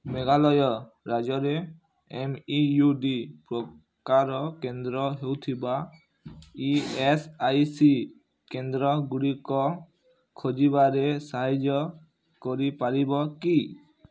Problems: low volume